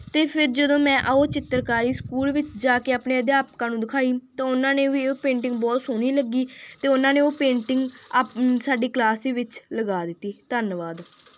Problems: none marked